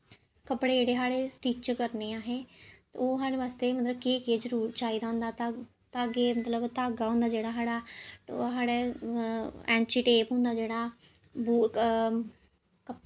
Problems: none marked